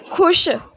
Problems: none marked